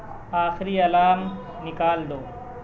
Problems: constant background noise, background conversations at intervals